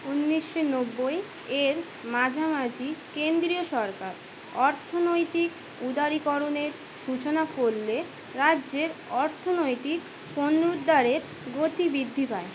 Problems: constant background noise